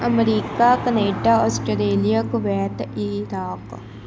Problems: constant background noise